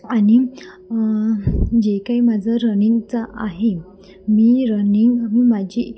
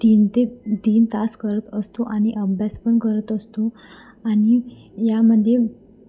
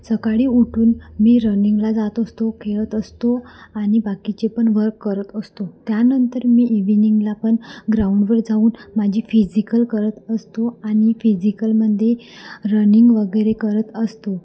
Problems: constant background noise, continuous background conversations